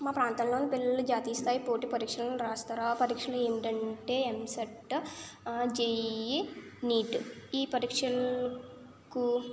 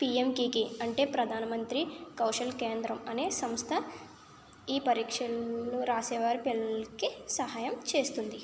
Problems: none marked